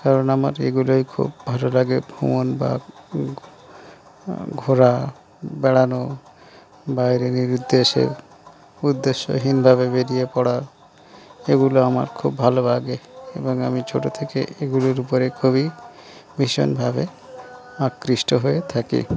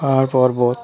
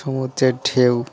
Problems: none marked